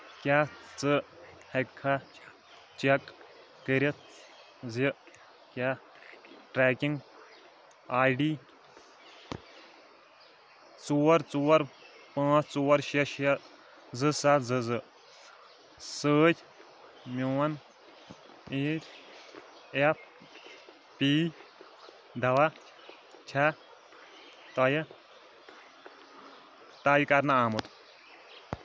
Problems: none marked